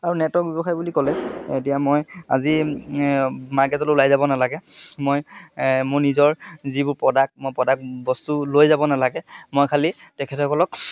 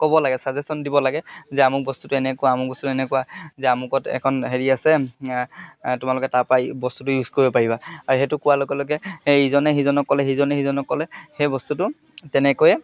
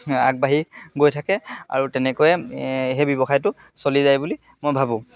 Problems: constant background noise